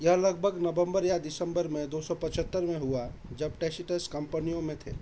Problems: none marked